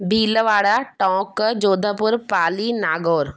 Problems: none marked